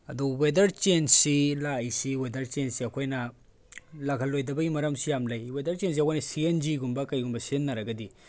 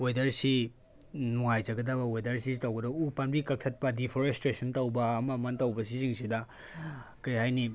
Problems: background sounds at intervals